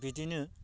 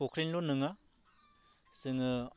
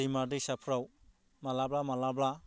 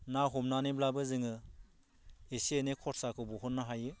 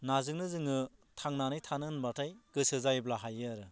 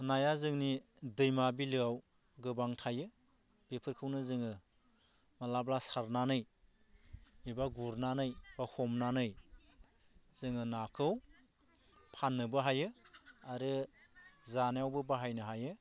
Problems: low volume